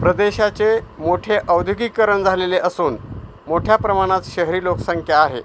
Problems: constant background noise